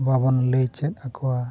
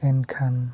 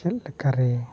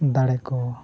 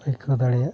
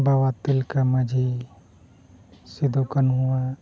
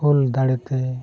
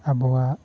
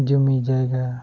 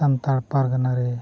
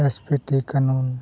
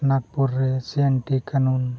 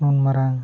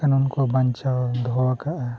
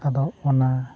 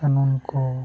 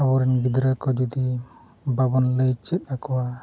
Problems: constant background noise